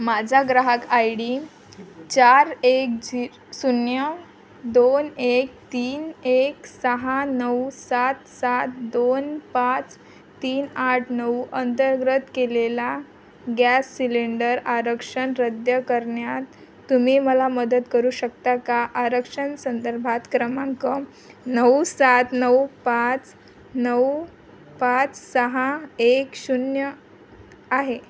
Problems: constant background noise